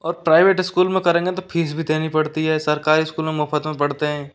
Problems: background sounds at intervals